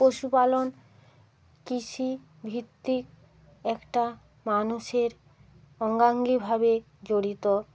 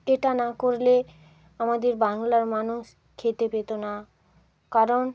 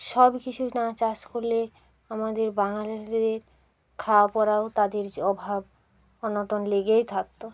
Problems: constant background noise, continuous background conversations